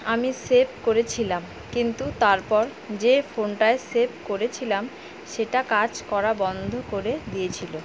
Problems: constant background noise